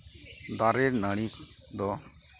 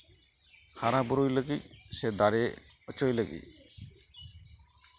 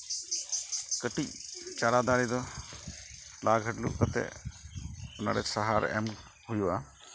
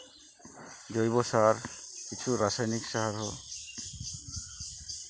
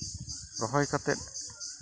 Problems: constant background noise